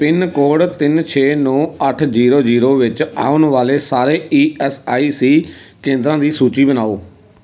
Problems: background conversations at intervals